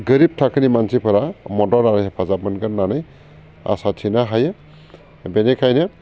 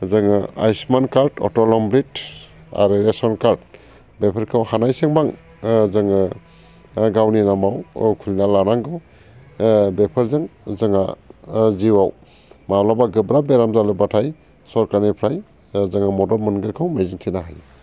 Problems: none marked